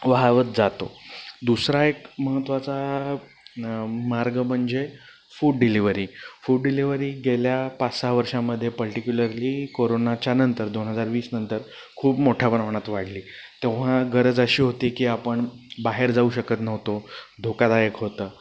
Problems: background sounds at intervals